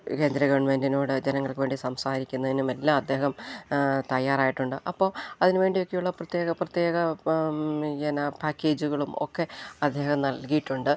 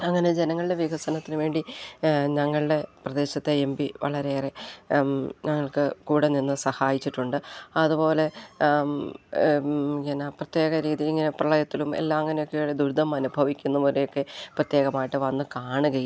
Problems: none marked